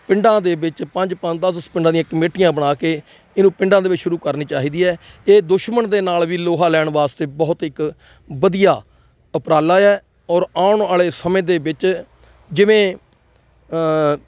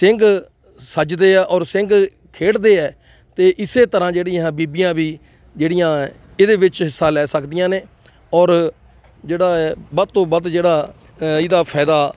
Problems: none marked